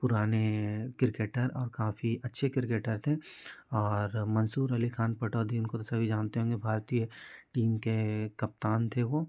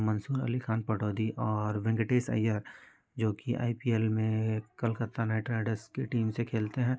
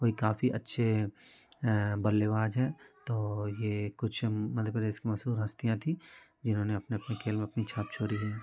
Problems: constant background noise, continuous background conversations